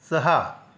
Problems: none marked